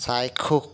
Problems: none marked